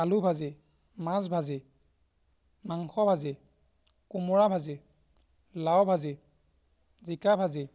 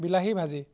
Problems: background sounds at intervals